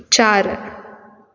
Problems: constant background noise